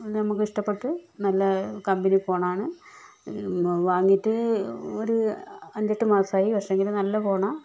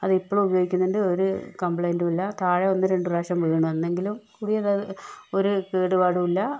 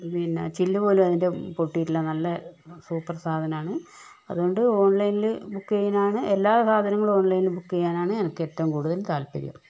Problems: none marked